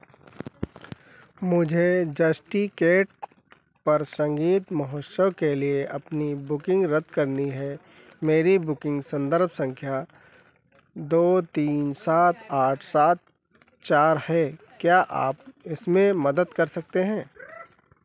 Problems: background sounds at intervals